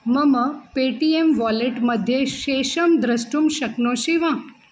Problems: constant background noise